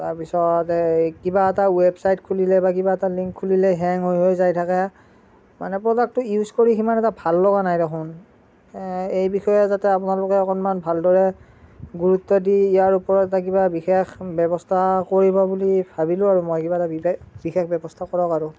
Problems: none marked